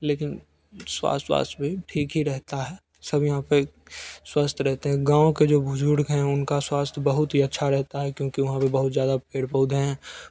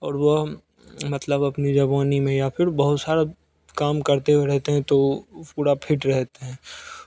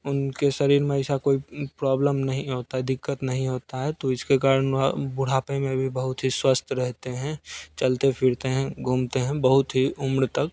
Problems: none marked